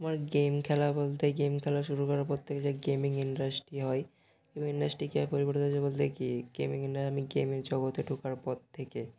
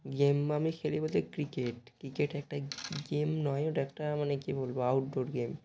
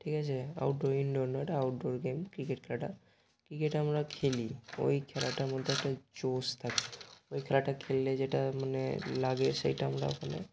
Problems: constant background noise